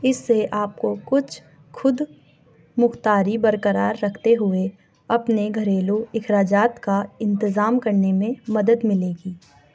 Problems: background sounds at intervals